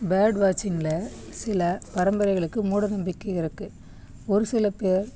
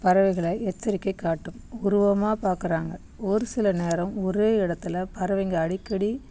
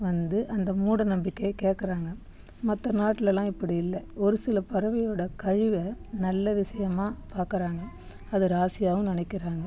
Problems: background conversations at intervals